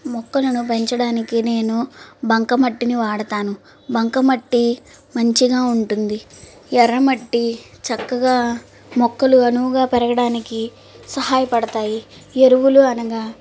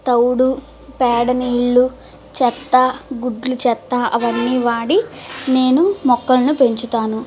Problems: constant background noise